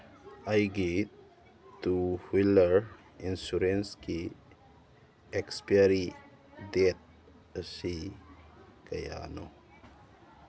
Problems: constant background noise